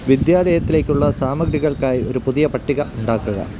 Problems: constant background noise